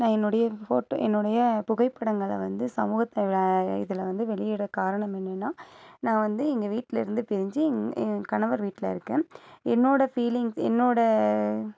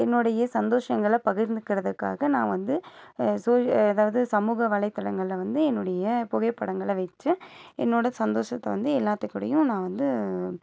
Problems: none marked